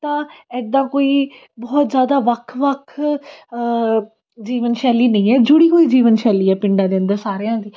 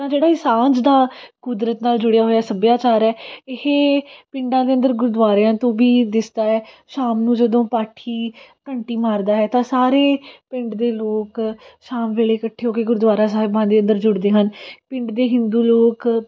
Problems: none marked